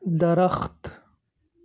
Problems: constant background noise